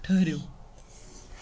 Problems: constant background noise